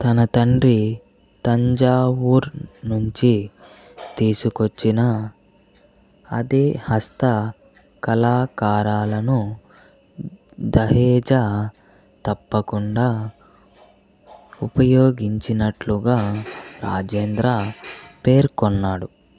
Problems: background sounds at intervals